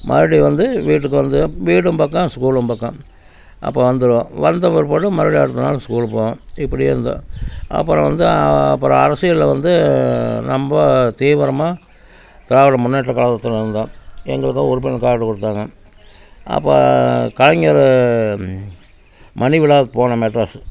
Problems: none marked